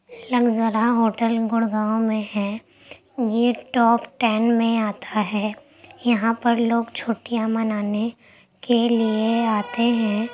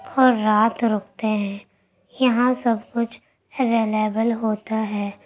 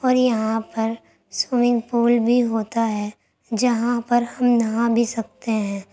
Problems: constant background noise